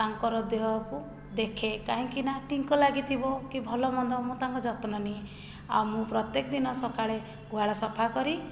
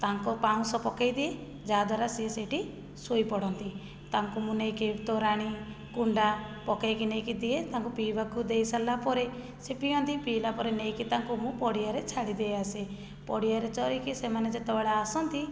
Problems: low volume